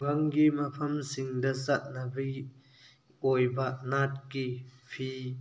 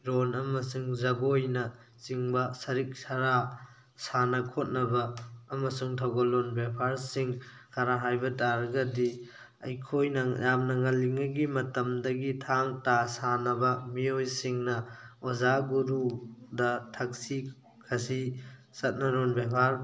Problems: none marked